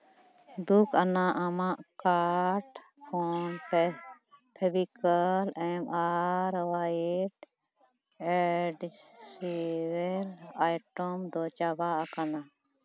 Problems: background sounds at intervals, background conversations at intervals